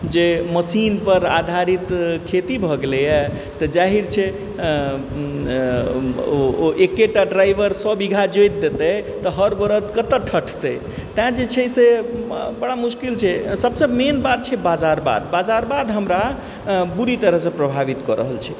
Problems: constant background noise